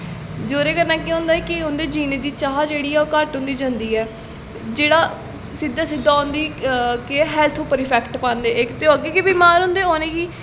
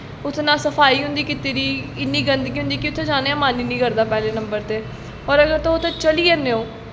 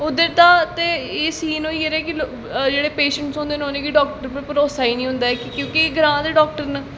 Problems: constant background noise, echo